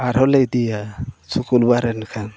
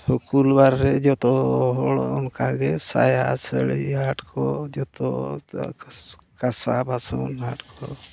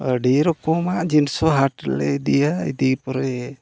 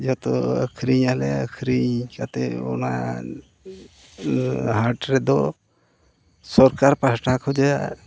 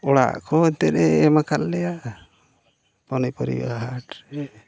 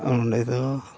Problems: constant background noise, low volume